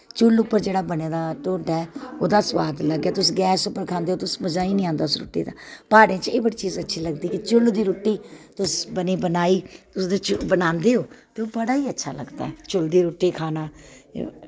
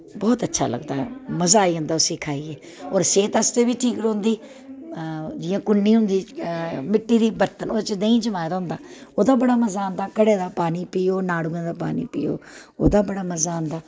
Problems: constant background noise